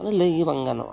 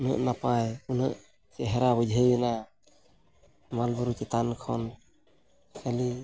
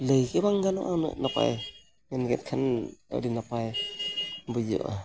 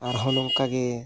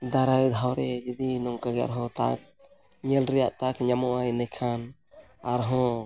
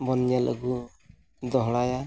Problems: background sounds at intervals